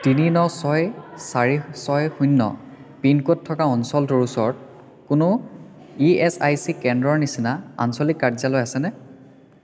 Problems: constant background noise